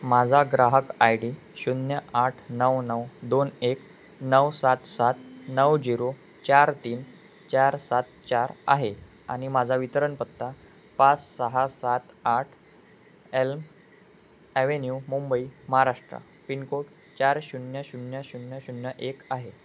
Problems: none marked